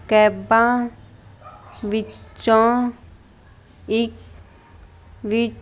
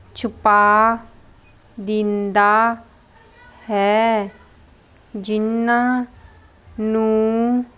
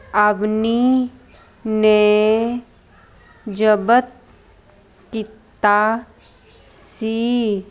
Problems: constant background noise